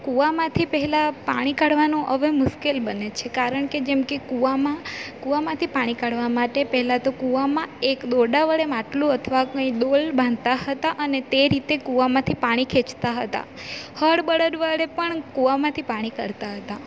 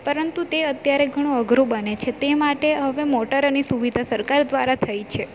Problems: constant background noise